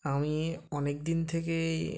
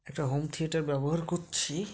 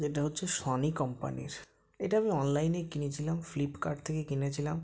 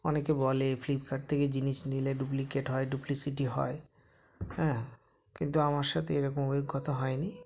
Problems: background sounds at intervals, background conversations at intervals